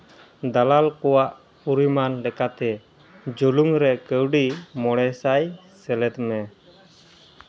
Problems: none marked